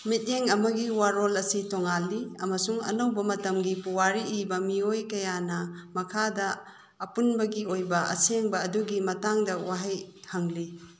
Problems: background sounds at intervals